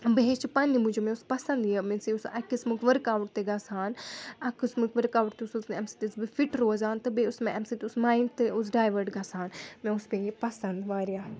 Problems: background sounds at intervals, background conversations at intervals